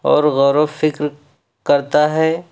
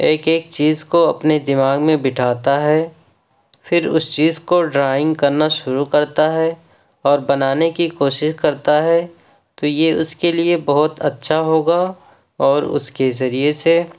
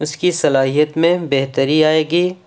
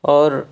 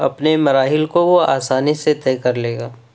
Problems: none marked